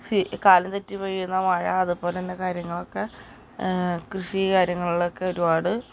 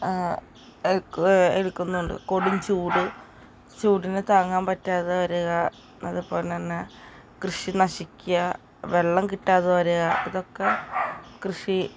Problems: constant background noise